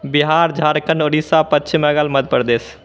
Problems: none marked